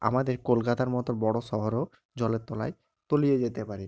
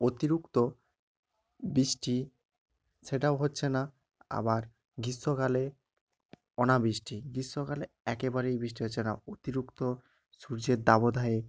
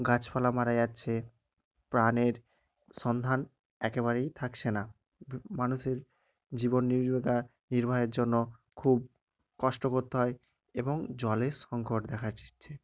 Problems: none marked